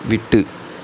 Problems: none marked